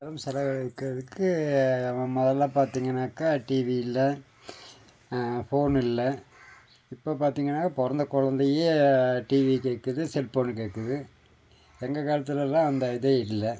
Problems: background sounds at intervals